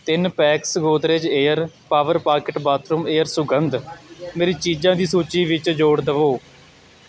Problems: background conversations at intervals